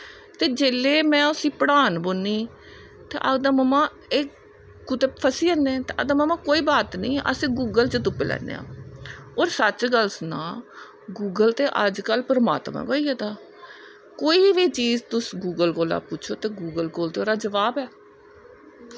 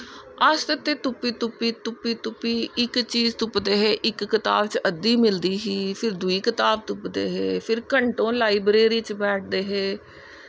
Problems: none marked